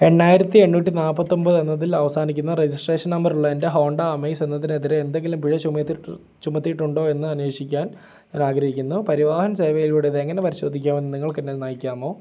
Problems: none marked